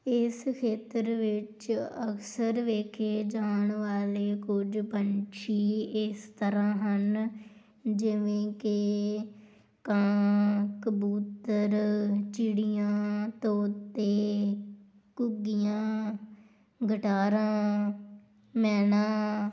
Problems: none marked